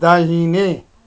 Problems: none marked